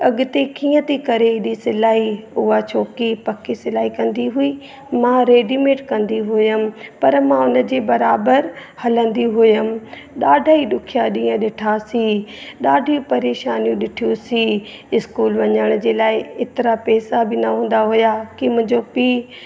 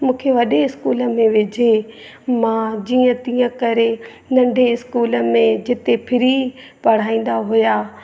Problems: constant background noise, echo